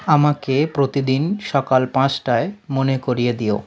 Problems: constant background noise